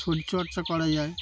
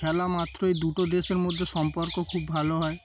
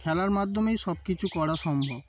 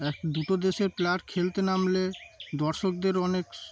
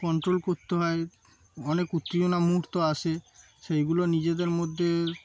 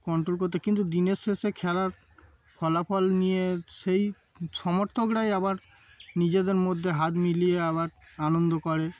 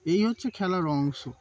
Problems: background sounds at intervals